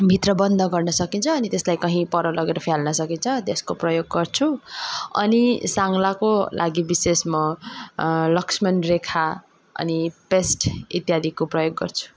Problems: background sounds at intervals